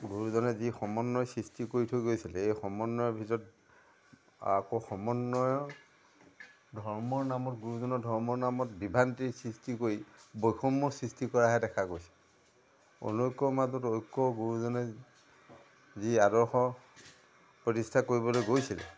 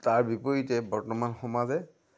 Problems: background sounds at intervals, background conversations at intervals